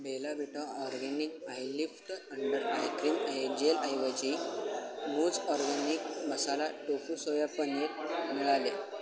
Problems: none marked